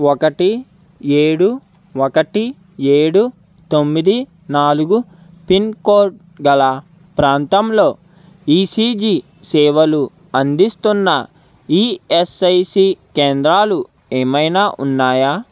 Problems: constant background noise